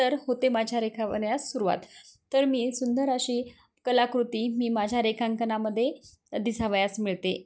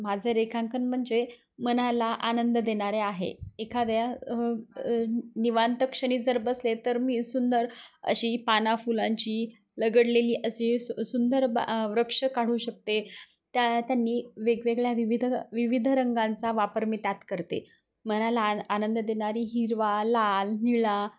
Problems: none marked